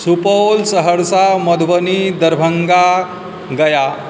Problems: none marked